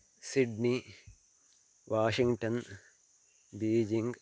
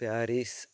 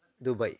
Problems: constant background noise